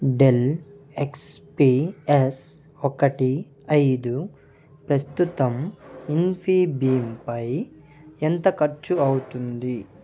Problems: background conversations at intervals